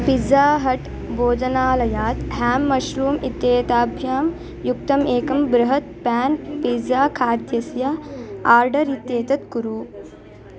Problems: continuous background conversations